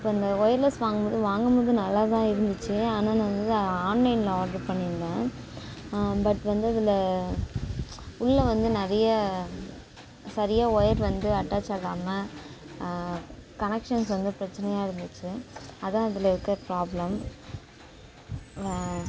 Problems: background sounds at intervals